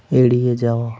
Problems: background sounds at intervals